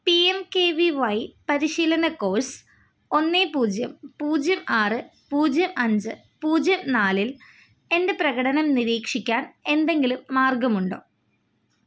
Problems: none marked